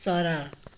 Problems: none marked